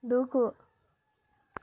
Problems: none marked